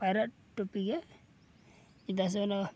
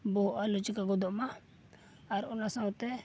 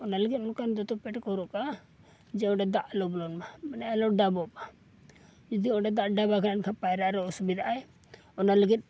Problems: none marked